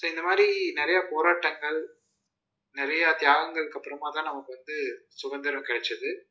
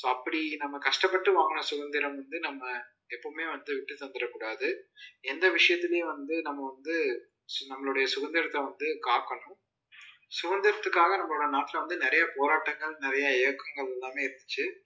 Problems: low volume